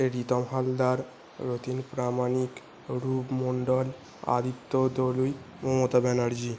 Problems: constant background noise